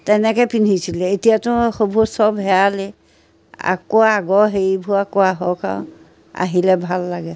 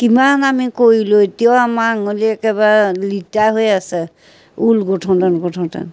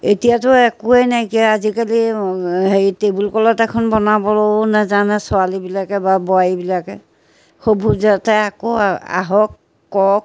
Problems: constant background noise, background conversations at intervals